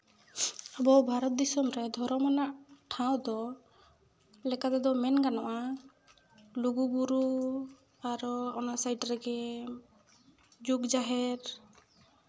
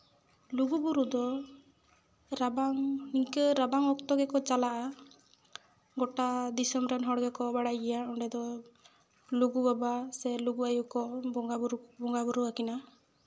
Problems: background sounds at intervals, echo